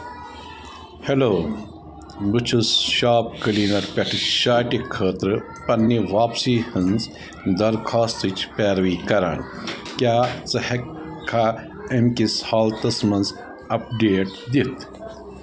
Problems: constant background noise, continuous background conversations